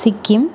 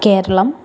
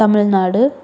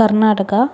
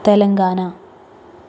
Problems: constant background noise